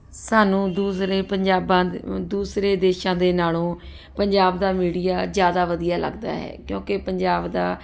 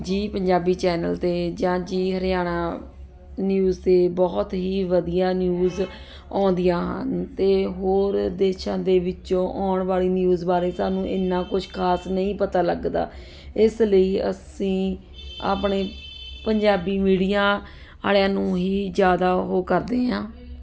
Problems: constant background noise